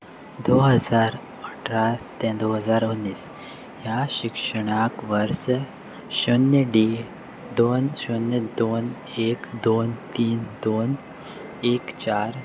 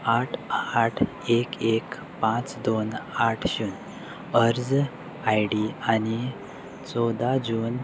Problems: none marked